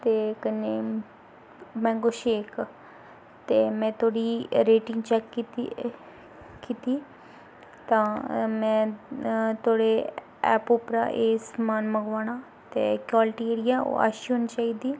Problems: background sounds at intervals